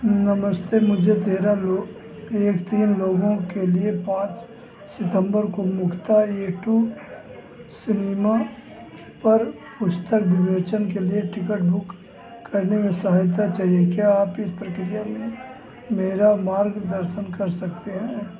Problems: constant background noise